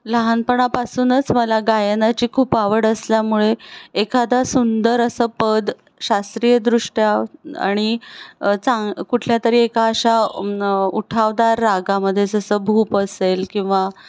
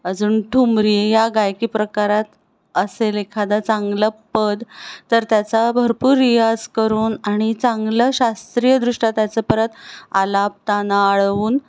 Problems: none marked